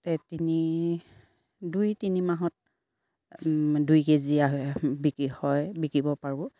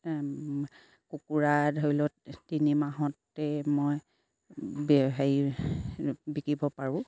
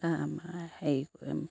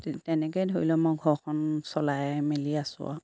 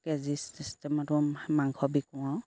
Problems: background sounds at intervals